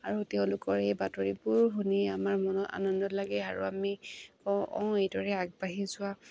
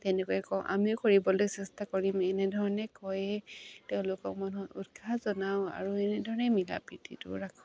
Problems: none marked